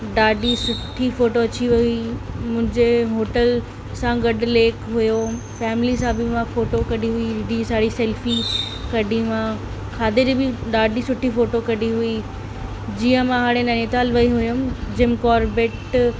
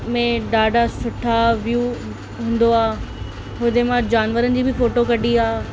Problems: constant background noise, echo